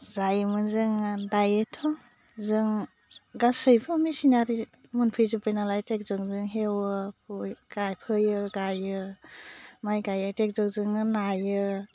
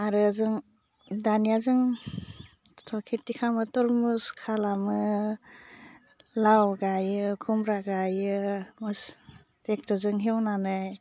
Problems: low volume